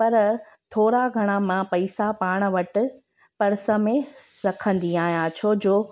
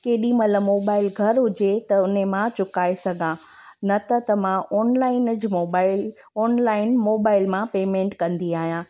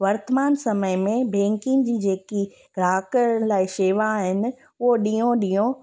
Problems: constant background noise